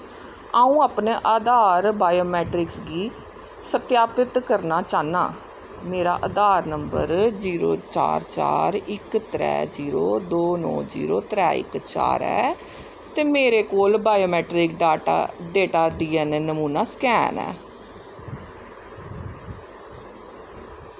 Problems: constant background noise